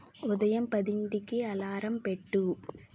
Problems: none marked